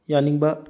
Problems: low volume